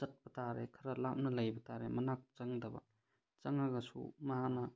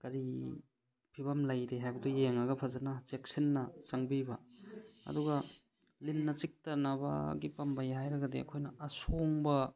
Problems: none marked